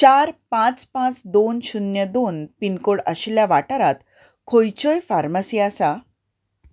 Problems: none marked